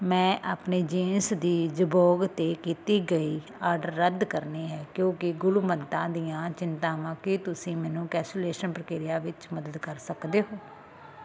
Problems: constant background noise